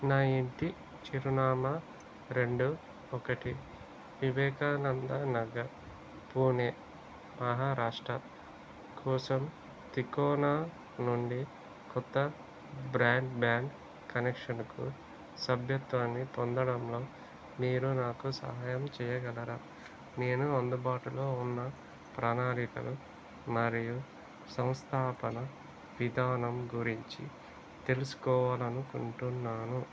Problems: low volume